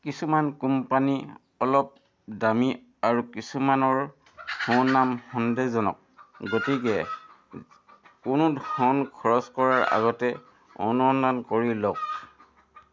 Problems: constant background noise